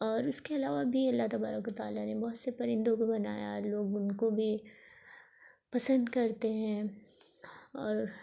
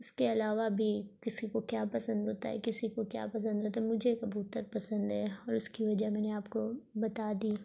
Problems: none marked